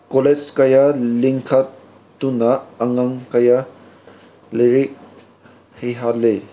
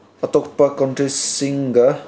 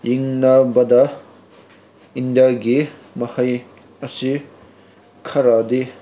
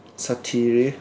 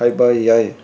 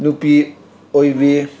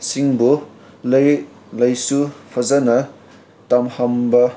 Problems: background sounds at intervals